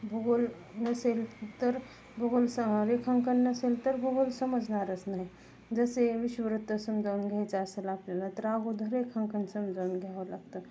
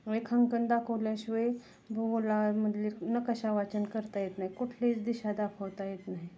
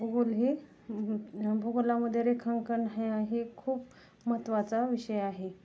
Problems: none marked